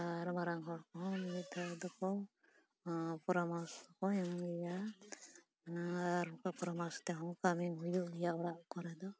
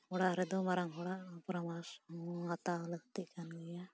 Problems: background conversations at intervals, low volume